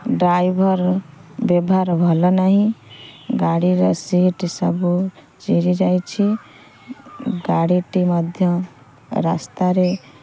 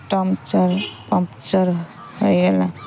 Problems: constant background noise